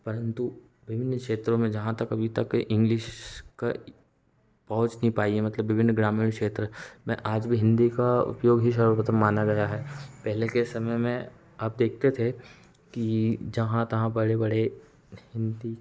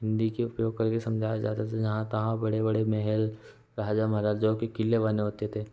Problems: background sounds at intervals